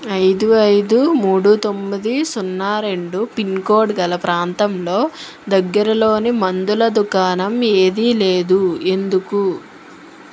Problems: constant background noise